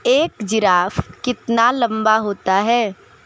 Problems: none marked